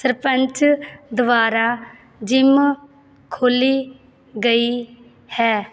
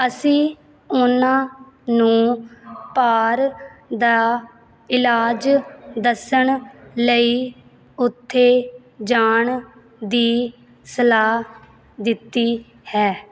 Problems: background sounds at intervals